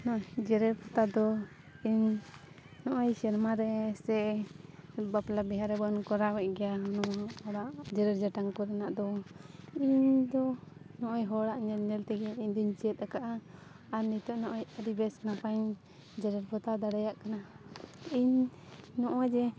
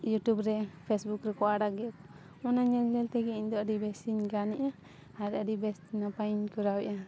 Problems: background sounds at intervals